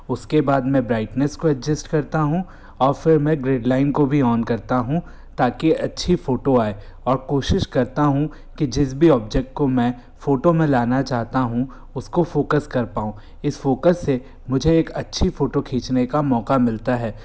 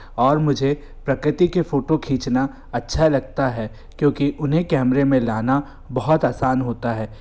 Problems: none marked